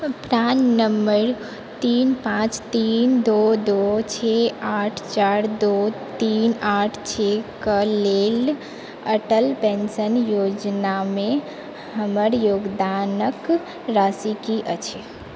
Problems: constant background noise